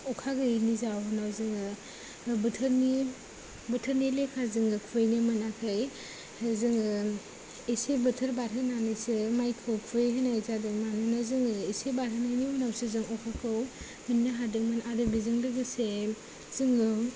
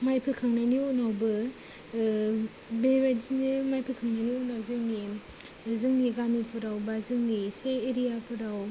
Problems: low volume